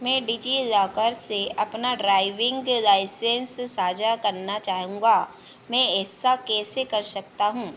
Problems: none marked